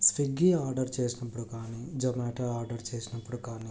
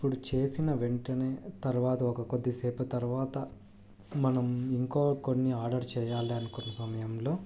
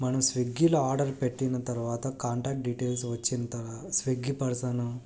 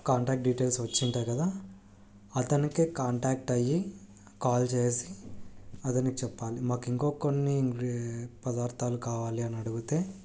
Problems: low volume